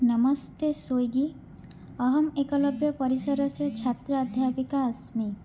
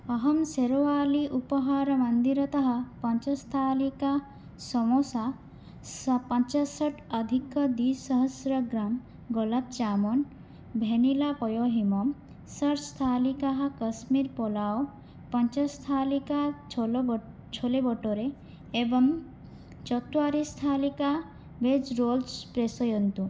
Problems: none marked